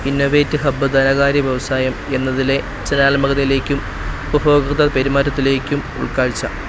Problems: constant background noise